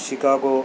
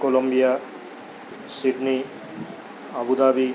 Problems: constant background noise